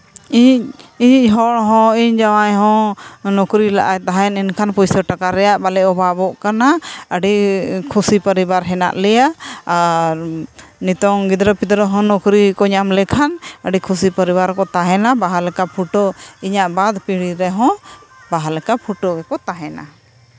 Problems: constant background noise